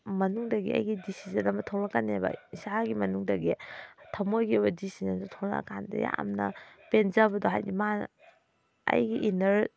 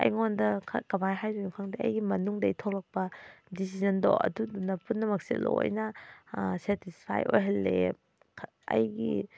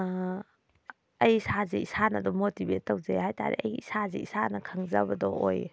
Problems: background sounds at intervals